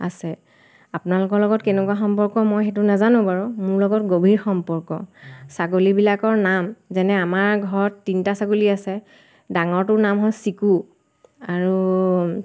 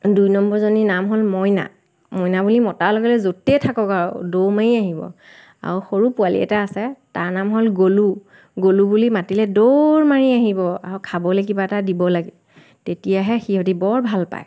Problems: constant background noise